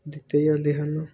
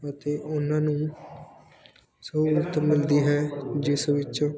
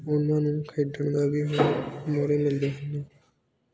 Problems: background sounds at intervals, background conversations at intervals